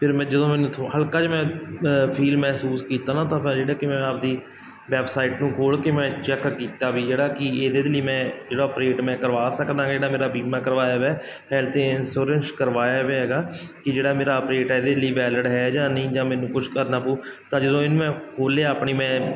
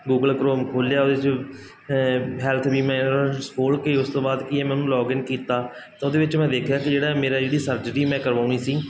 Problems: none marked